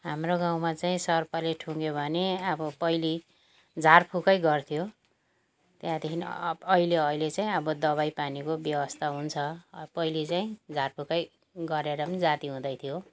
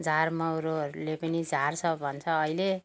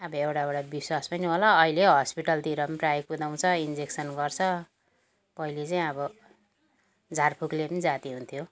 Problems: none marked